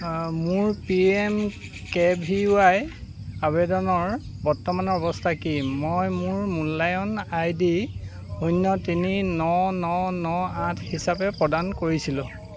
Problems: constant background noise